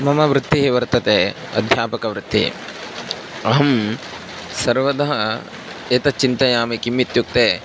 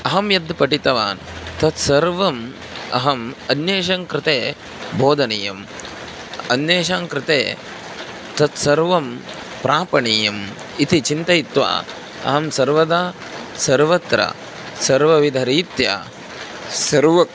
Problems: constant background noise